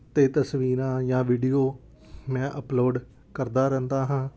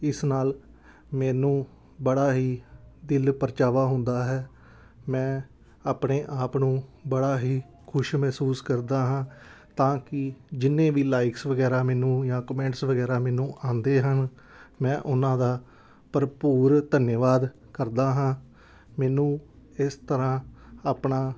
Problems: background sounds at intervals